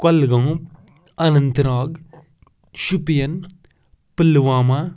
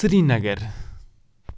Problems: background sounds at intervals